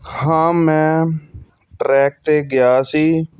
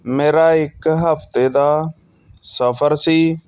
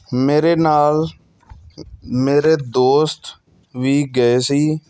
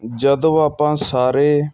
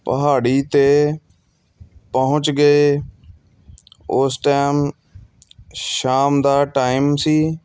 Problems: background sounds at intervals